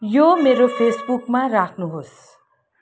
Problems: background sounds at intervals